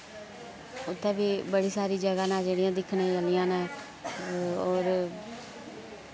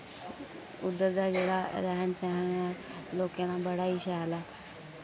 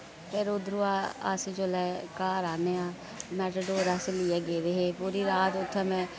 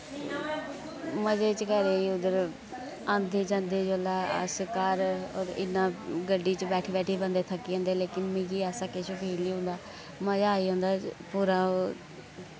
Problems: constant background noise